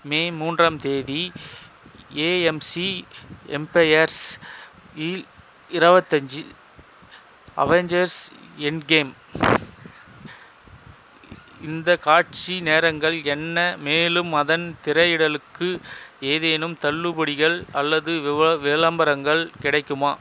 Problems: constant background noise